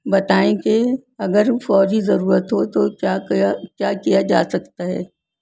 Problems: none marked